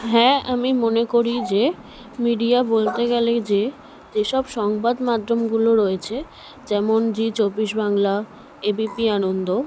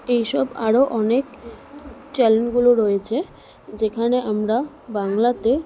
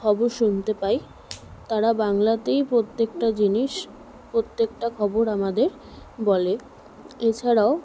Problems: none marked